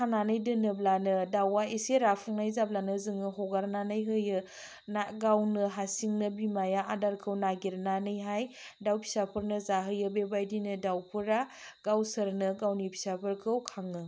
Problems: low volume